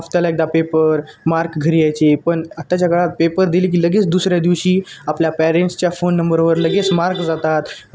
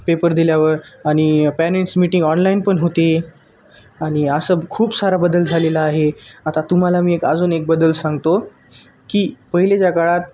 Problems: none marked